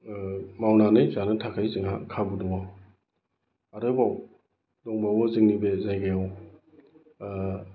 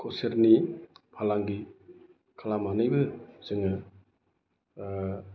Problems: constant background noise